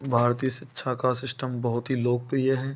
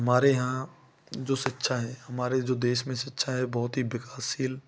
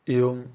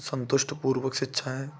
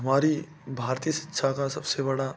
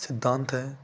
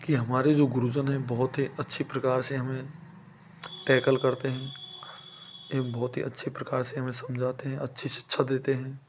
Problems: none marked